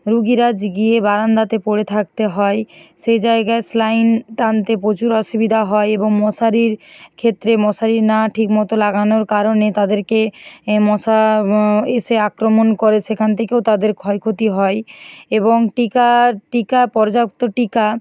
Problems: none marked